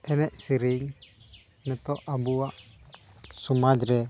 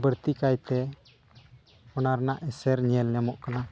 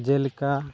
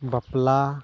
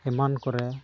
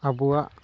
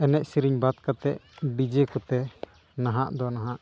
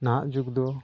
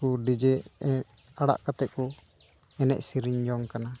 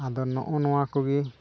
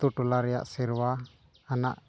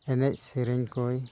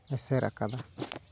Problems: background sounds at intervals